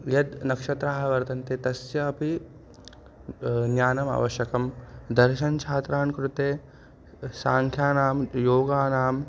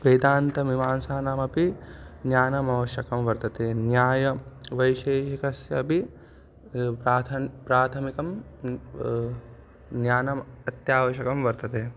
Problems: constant background noise